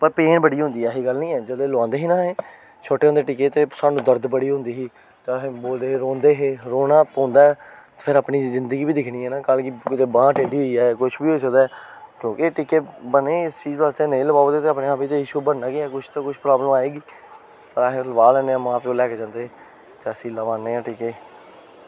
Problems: constant background noise